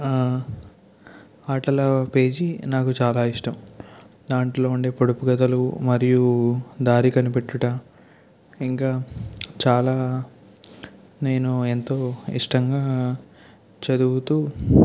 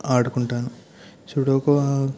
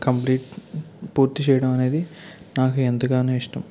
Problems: none marked